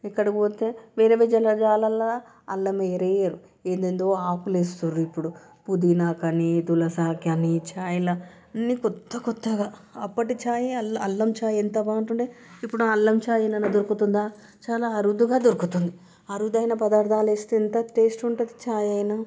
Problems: background sounds at intervals